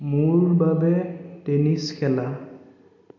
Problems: echo